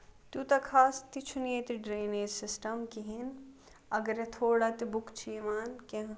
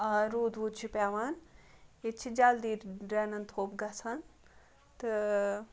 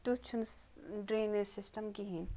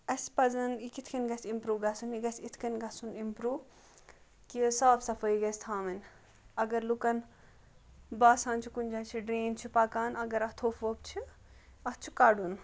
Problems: background sounds at intervals